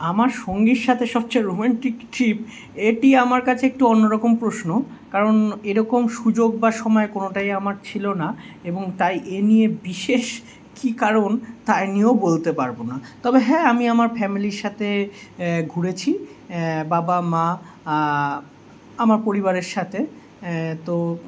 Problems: none marked